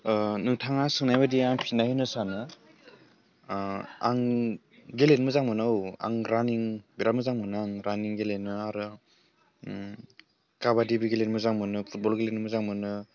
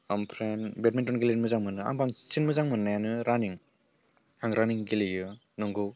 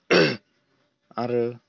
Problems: low volume